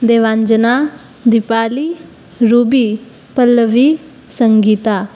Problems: none marked